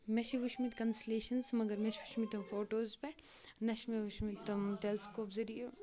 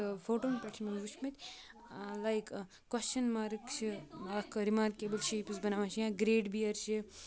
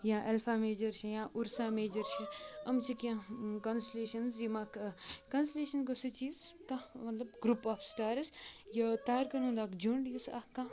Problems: continuous background conversations